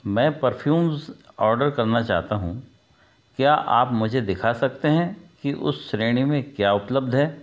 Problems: background sounds at intervals